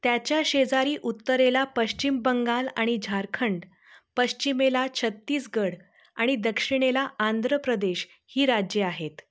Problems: background sounds at intervals